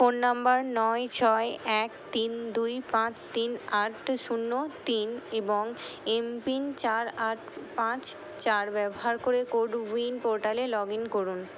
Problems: constant background noise